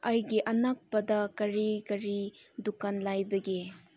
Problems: low volume